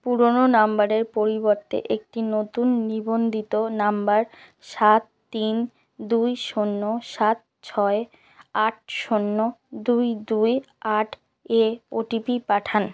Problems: constant background noise